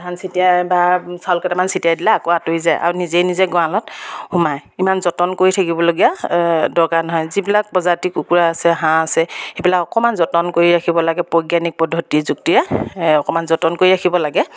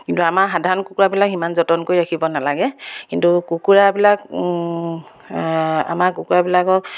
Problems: background sounds at intervals